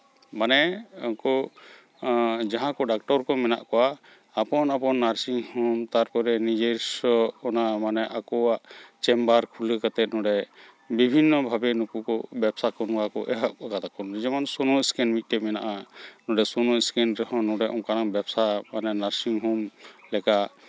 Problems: background sounds at intervals, continuous background conversations